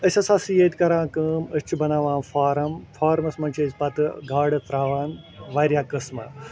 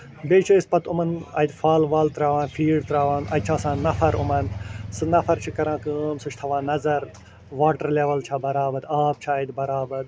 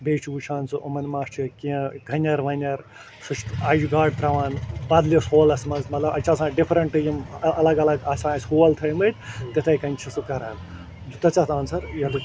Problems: constant background noise, background conversations at intervals